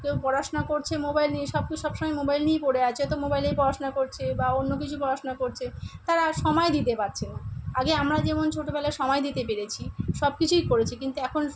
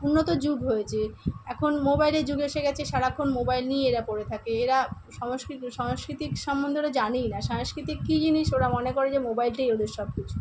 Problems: constant background noise